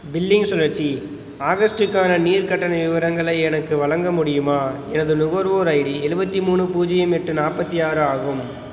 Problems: background sounds at intervals